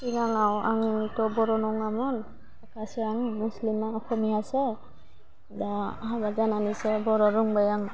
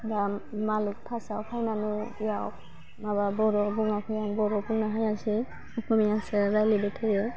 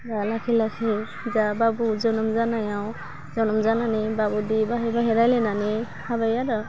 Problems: constant background noise